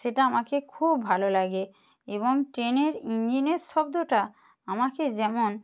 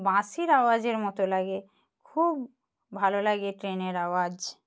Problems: background sounds at intervals